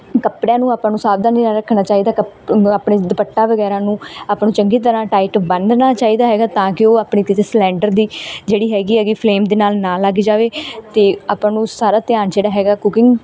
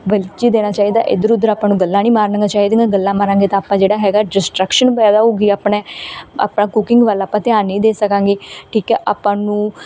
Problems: none marked